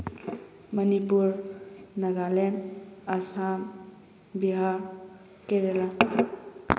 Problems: background sounds at intervals